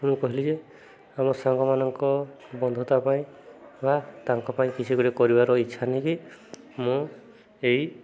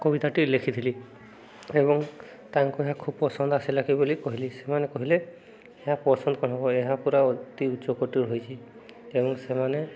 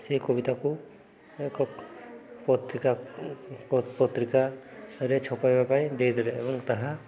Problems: background conversations at intervals